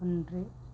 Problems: low volume